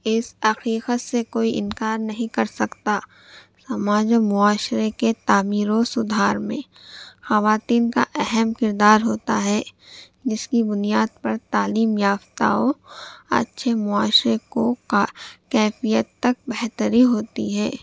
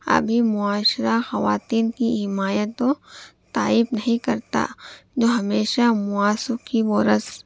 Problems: none marked